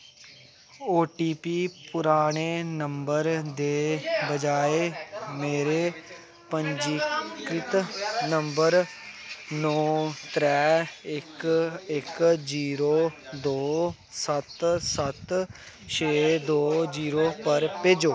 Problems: constant background noise